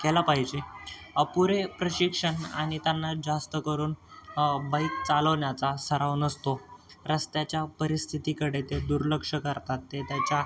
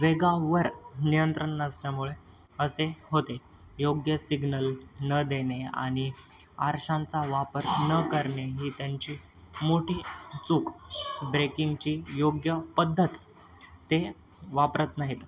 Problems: constant background noise, continuous background conversations